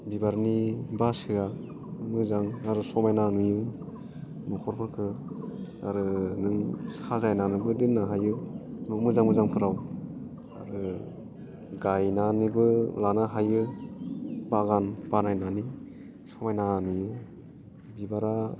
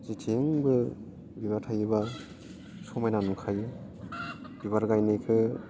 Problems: none marked